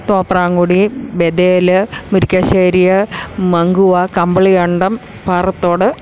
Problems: none marked